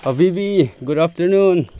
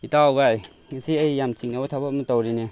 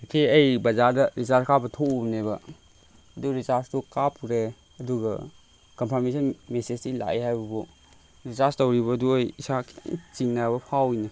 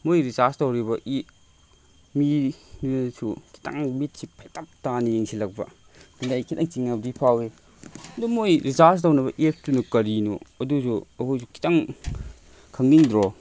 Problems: constant background noise